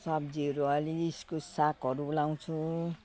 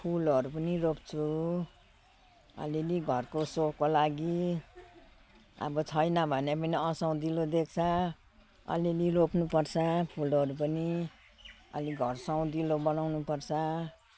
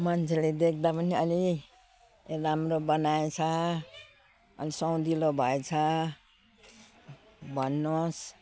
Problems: constant background noise